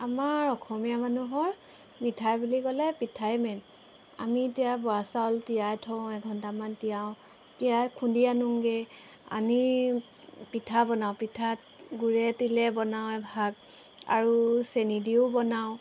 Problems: background sounds at intervals